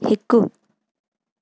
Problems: constant background noise